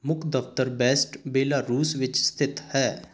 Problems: background sounds at intervals